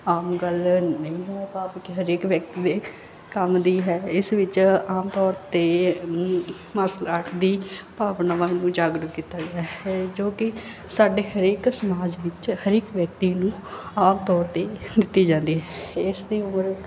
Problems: background sounds at intervals